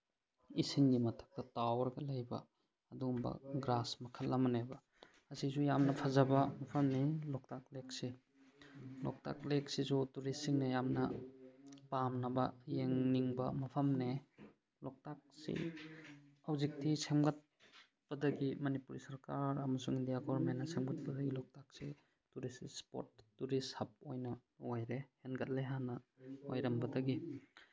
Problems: background sounds at intervals